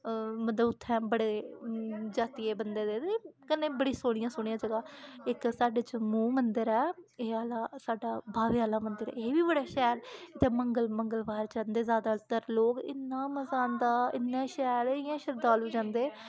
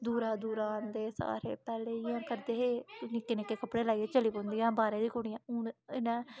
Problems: constant background noise